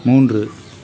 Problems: constant background noise